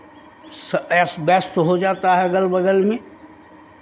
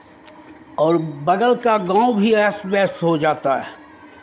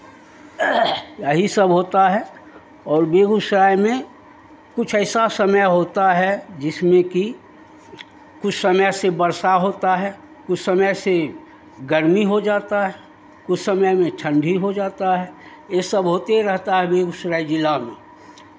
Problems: constant background noise, background conversations at intervals